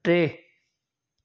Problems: none marked